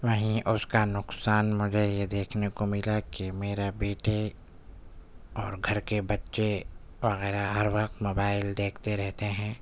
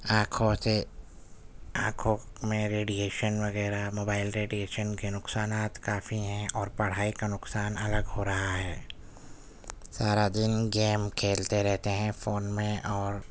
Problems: none marked